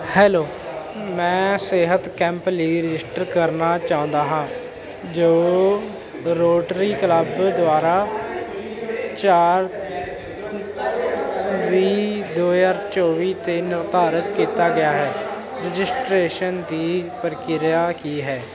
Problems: continuous background conversations